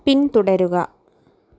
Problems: none marked